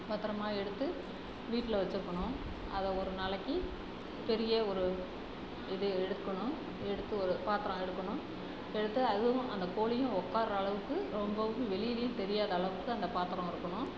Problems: constant background noise, background conversations at intervals